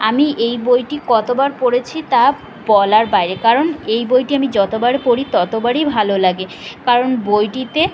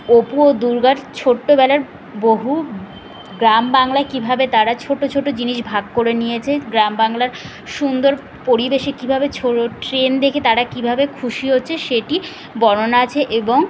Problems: constant background noise